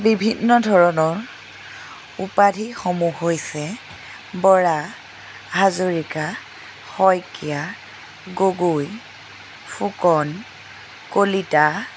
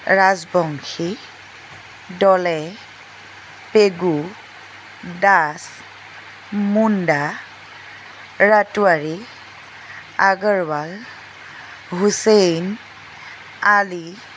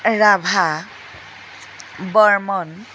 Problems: constant background noise